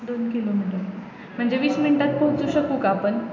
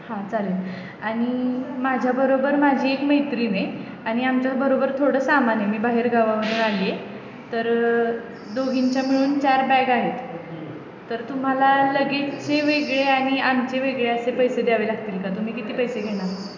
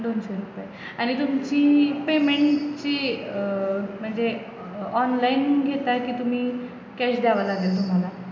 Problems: constant background noise, background conversations at intervals